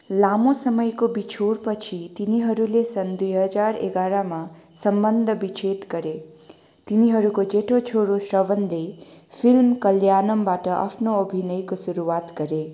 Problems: constant background noise